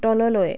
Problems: background conversations at intervals